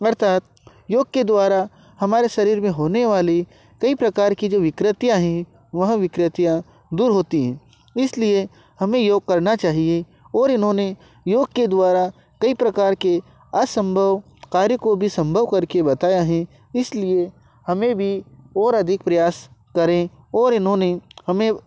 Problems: none marked